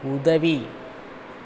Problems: constant background noise